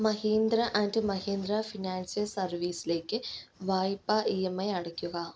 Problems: none marked